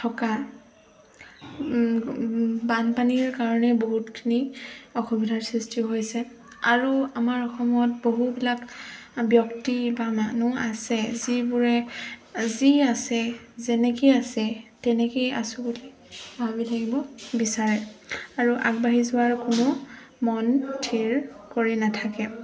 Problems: constant background noise, background conversations at intervals